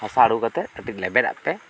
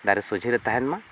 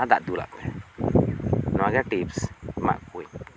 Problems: background sounds at intervals